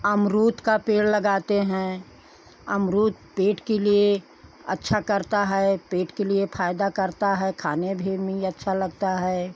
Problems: none marked